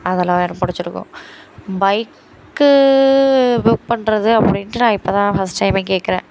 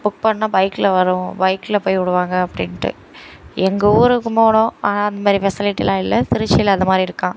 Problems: constant background noise